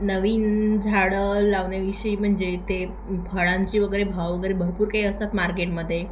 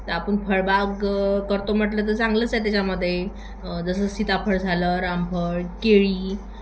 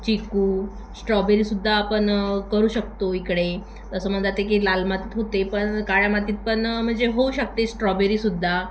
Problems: constant background noise, echo